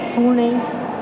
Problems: constant background noise, low volume